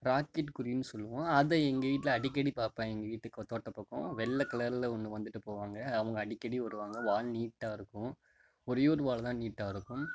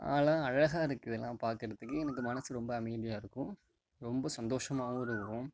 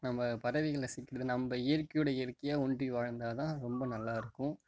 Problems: background sounds at intervals